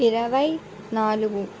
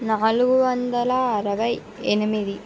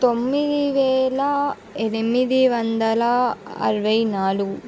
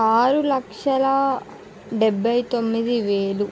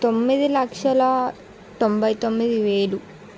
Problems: none marked